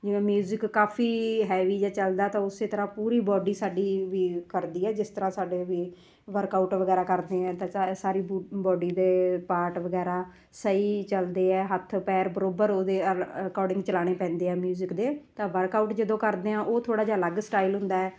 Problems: background sounds at intervals